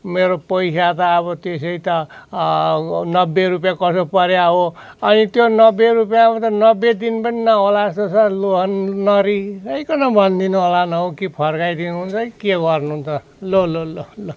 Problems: none marked